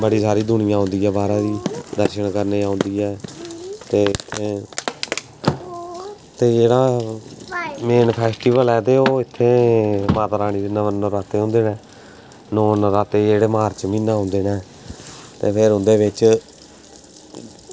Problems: constant background noise, background conversations at intervals